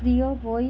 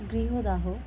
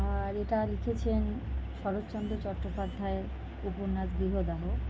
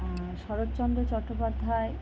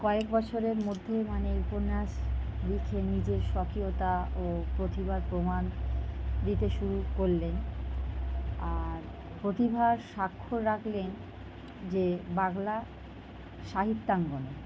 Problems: constant background noise